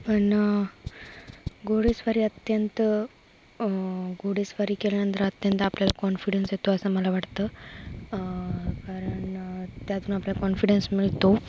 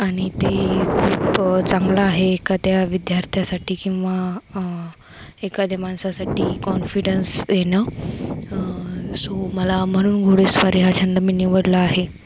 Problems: constant background noise